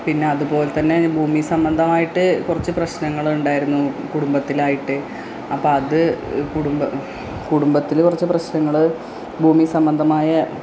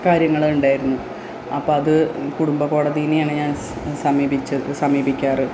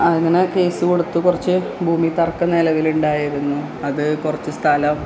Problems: constant background noise